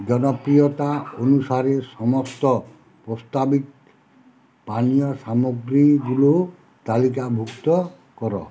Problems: constant background noise, background conversations at intervals